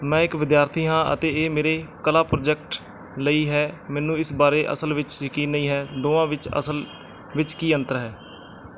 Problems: none marked